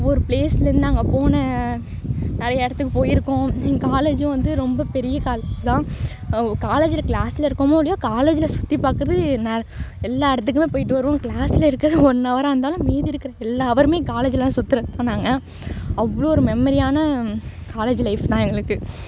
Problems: background sounds at intervals